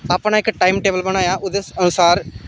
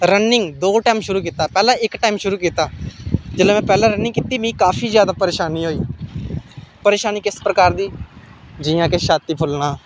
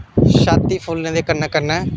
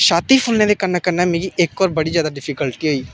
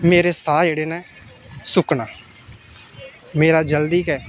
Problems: none marked